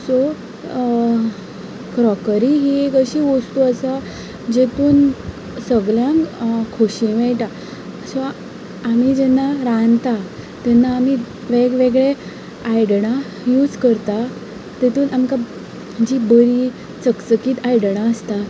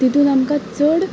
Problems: background conversations at intervals